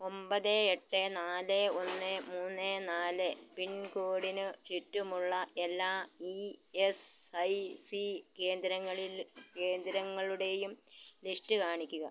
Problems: background sounds at intervals, low volume